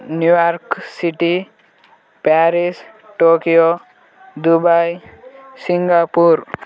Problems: continuous background conversations